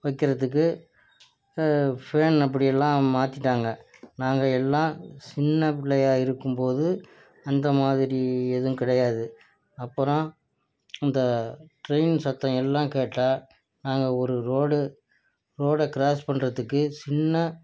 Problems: low volume